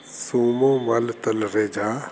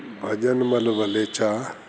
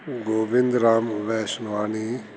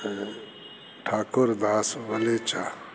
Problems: constant background noise